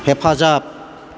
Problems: constant background noise